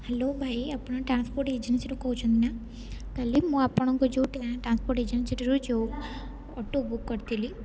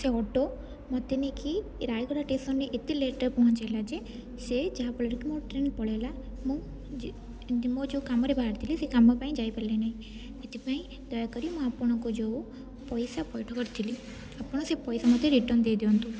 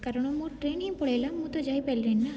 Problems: none marked